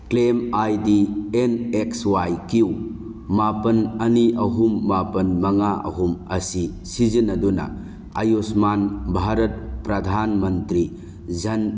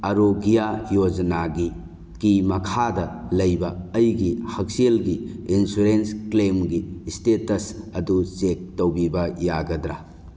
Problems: none marked